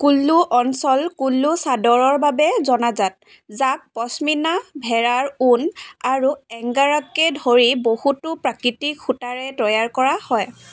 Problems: constant background noise, background conversations at intervals